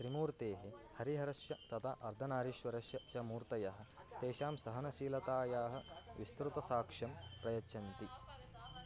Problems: background conversations at intervals